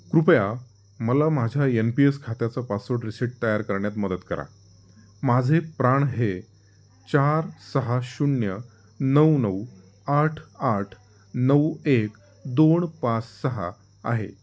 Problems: background sounds at intervals